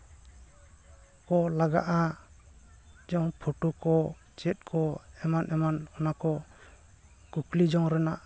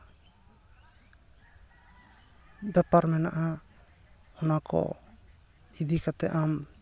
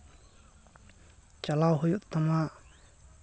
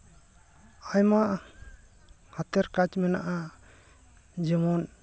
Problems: constant background noise, background conversations at intervals